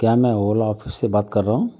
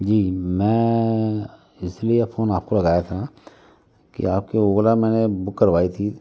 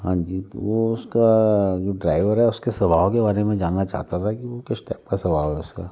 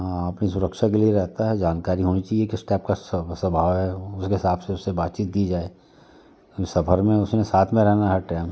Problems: constant background noise, background conversations at intervals